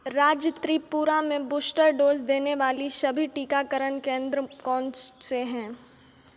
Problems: none marked